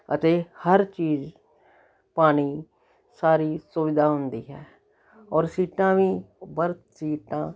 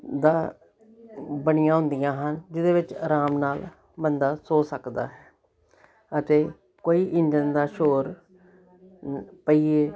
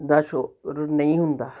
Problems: continuous background conversations